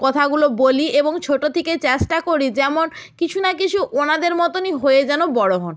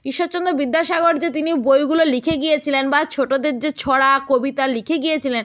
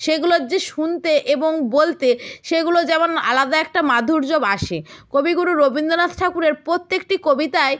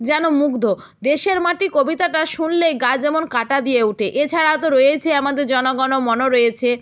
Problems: none marked